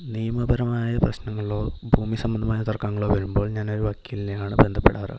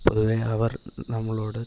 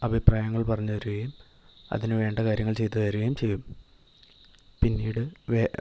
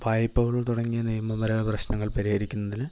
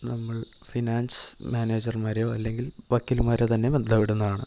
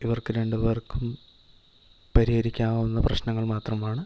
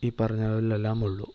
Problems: none marked